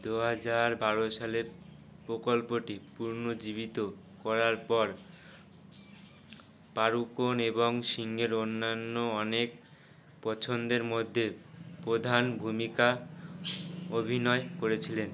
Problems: background sounds at intervals